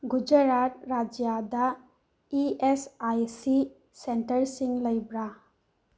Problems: none marked